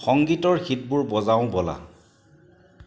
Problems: constant background noise